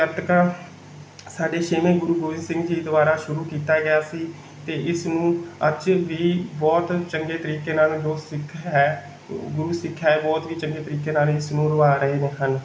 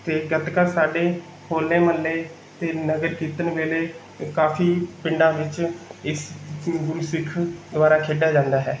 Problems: background sounds at intervals